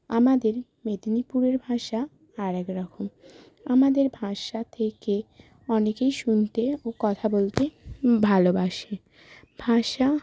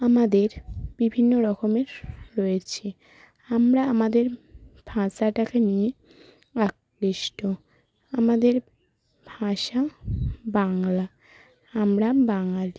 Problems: constant background noise